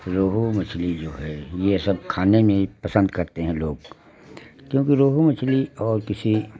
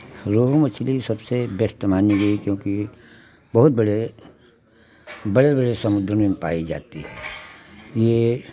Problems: constant background noise